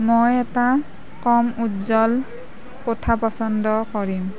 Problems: background conversations at intervals